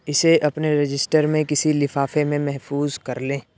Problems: none marked